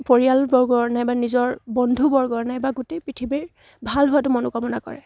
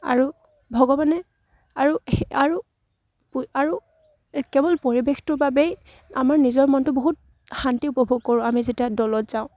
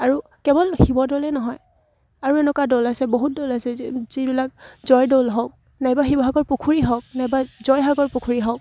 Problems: none marked